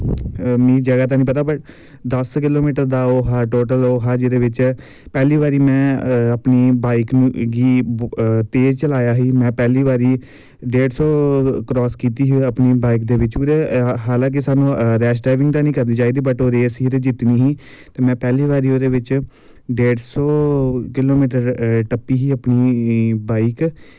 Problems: background sounds at intervals